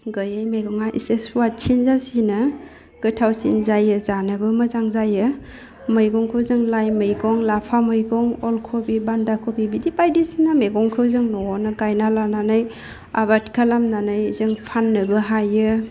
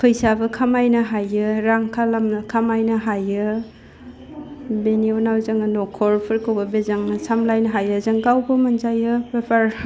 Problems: low volume